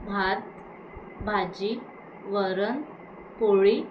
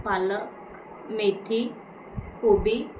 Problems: constant background noise